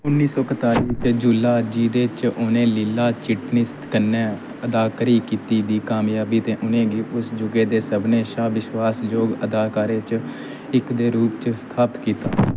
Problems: constant background noise